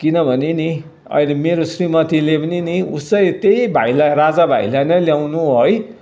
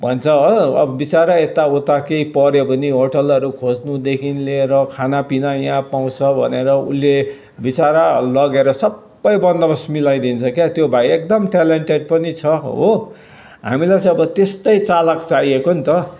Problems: none marked